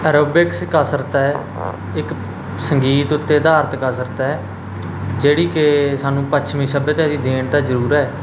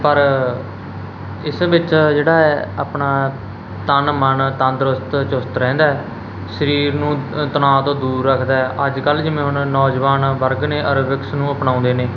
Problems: none marked